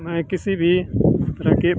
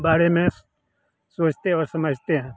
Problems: none marked